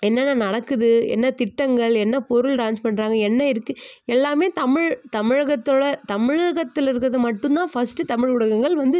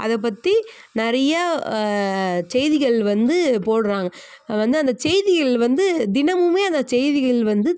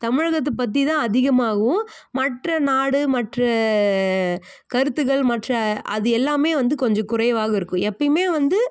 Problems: none marked